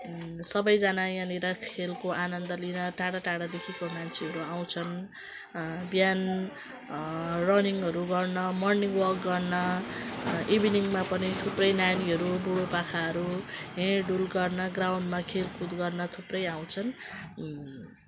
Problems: constant background noise